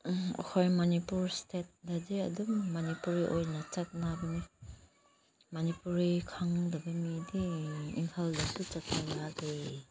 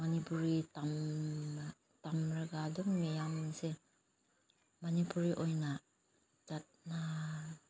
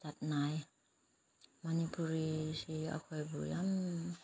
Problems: low volume